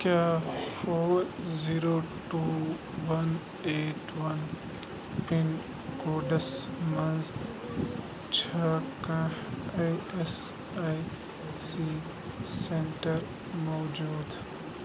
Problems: constant background noise